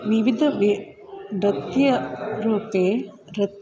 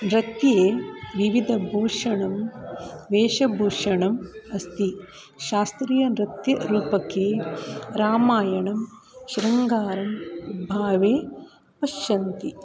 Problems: none marked